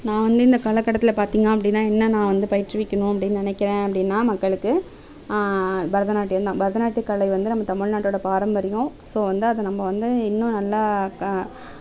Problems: none marked